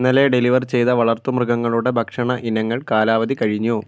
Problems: none marked